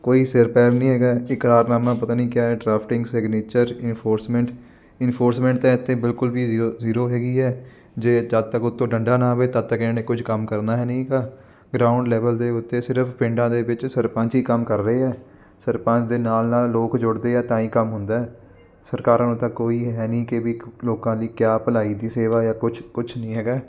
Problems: constant background noise